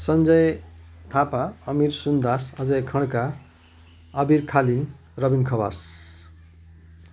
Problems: none marked